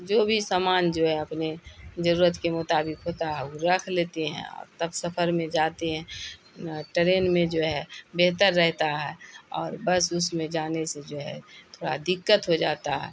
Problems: constant background noise